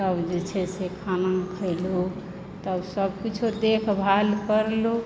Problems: constant background noise